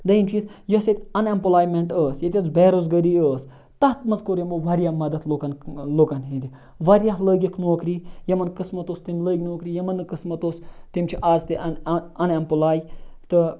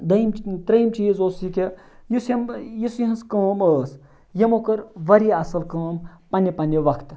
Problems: none marked